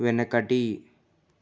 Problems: none marked